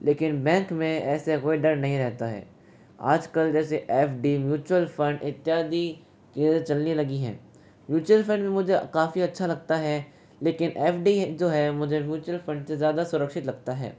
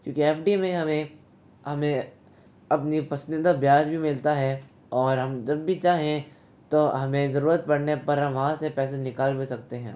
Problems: constant background noise